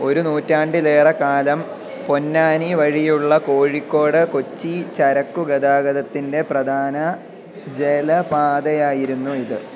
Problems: constant background noise